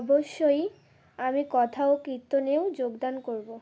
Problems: constant background noise